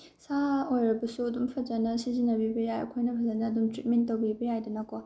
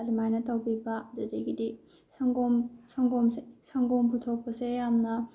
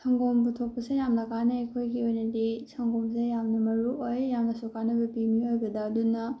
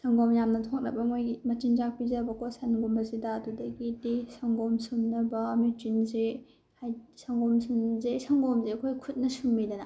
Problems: low volume